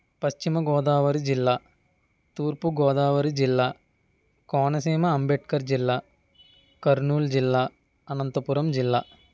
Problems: none marked